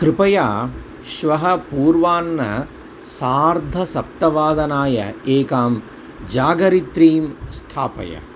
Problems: constant background noise